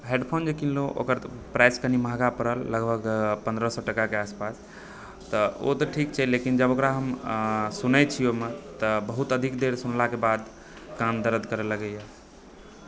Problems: constant background noise